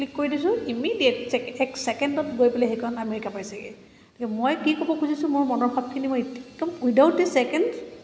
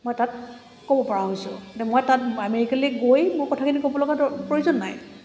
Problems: background sounds at intervals